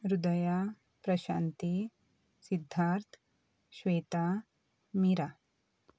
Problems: none marked